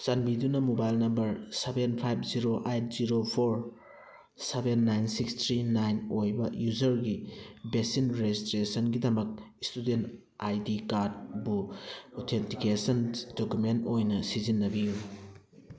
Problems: background conversations at intervals